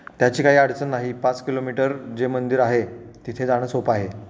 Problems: background sounds at intervals